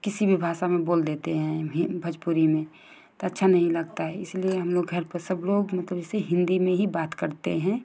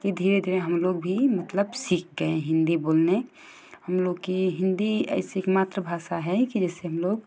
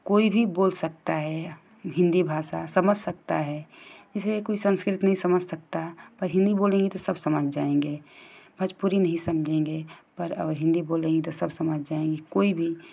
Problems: constant background noise